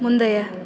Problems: background conversations at intervals